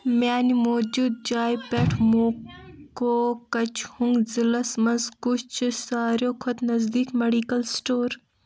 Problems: background sounds at intervals, background conversations at intervals